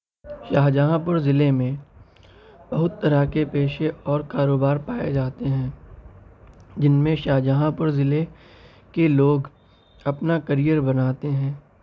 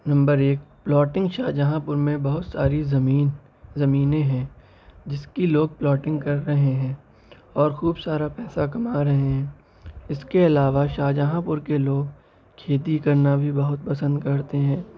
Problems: constant background noise, background conversations at intervals